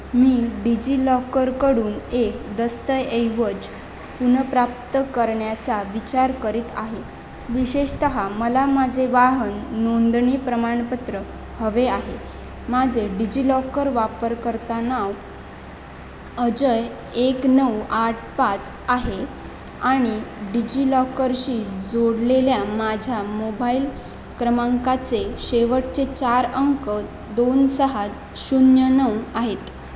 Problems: constant background noise